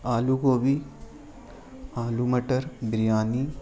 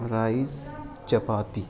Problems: constant background noise